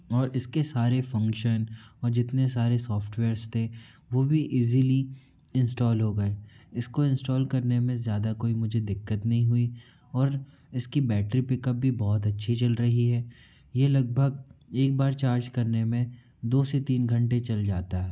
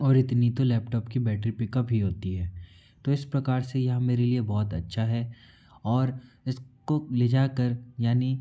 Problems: background sounds at intervals